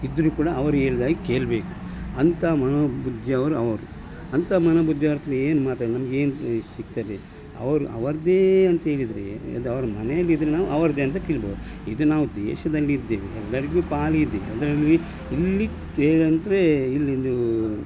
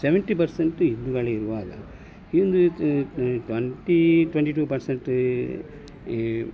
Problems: none marked